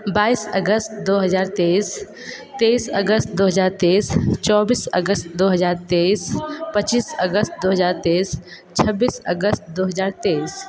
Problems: background sounds at intervals, continuous background conversations